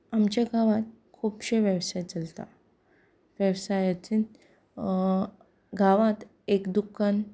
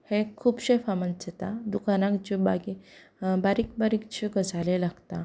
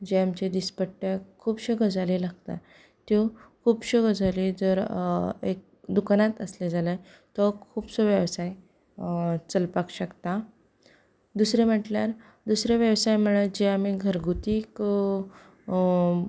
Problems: background conversations at intervals